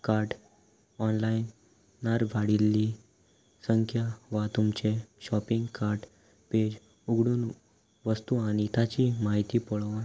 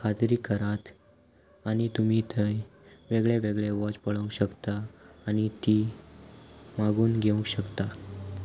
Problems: none marked